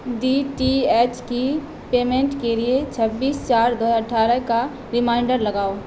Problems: constant background noise